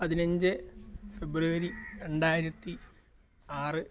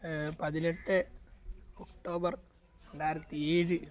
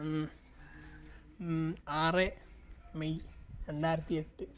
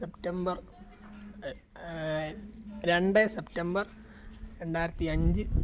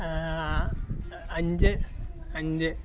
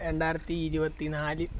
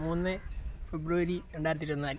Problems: background sounds at intervals